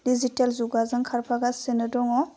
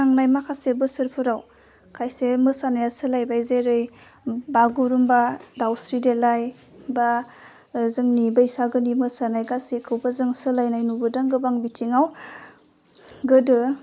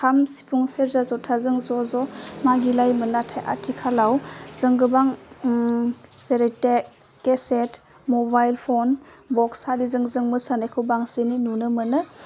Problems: low volume